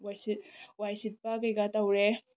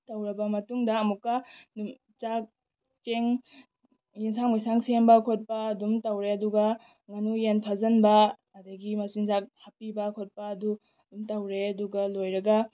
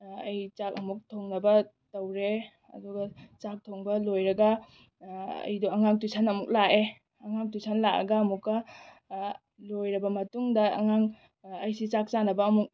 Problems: none marked